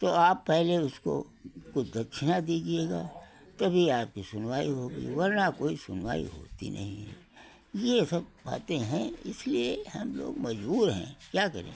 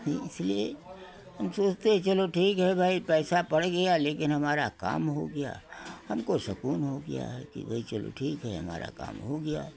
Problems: none marked